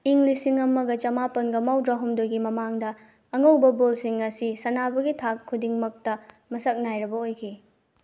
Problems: none marked